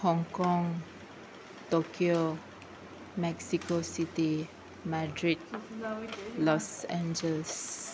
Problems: constant background noise